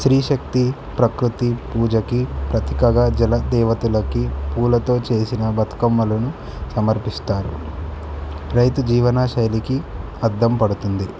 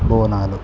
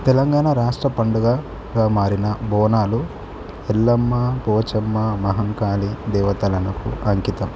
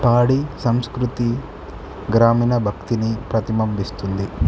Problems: none marked